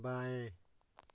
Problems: none marked